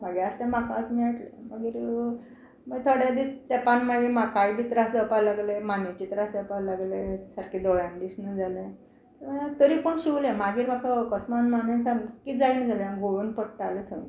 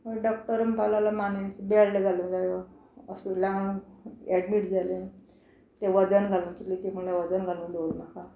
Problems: none marked